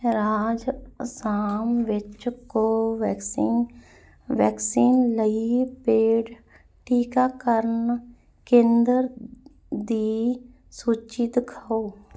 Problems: none marked